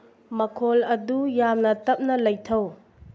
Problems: low volume